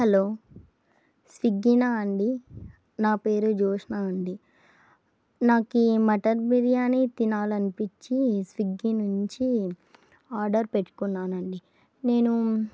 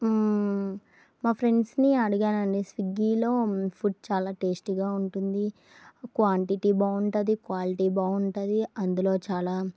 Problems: none marked